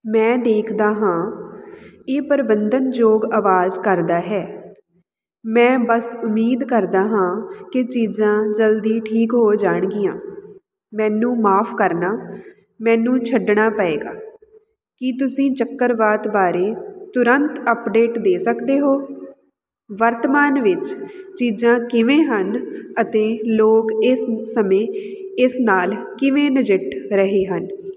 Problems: background sounds at intervals